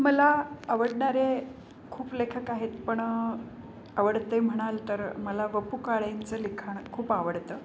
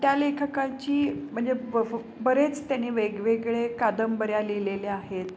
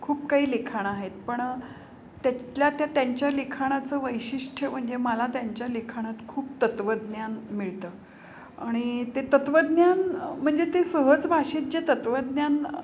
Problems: constant background noise